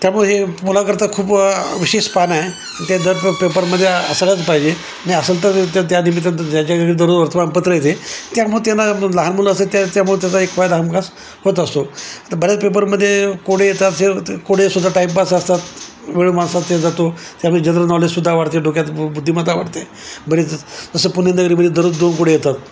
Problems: constant background noise